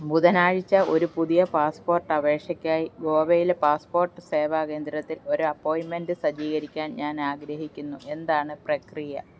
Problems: none marked